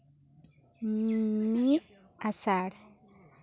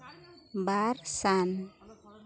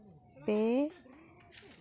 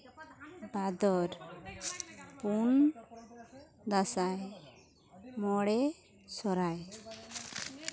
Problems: continuous background conversations